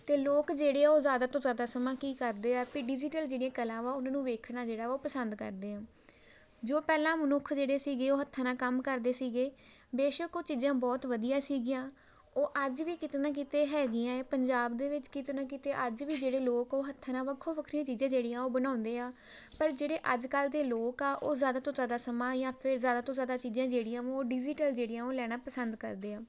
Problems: background sounds at intervals